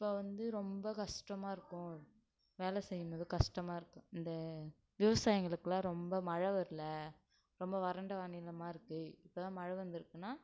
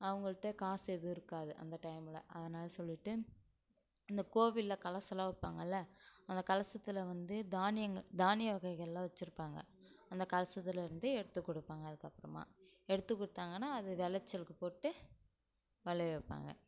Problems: low volume